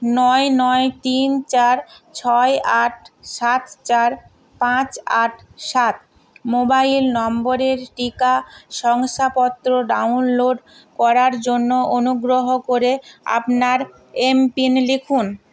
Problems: none marked